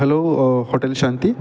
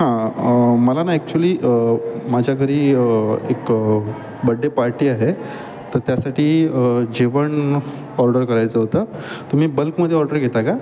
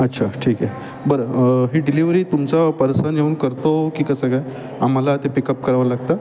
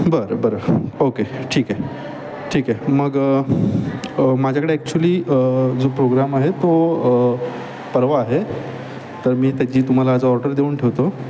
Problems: none marked